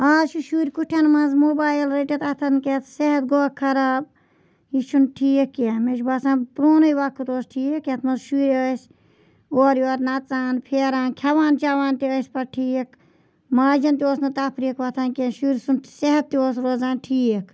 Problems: background sounds at intervals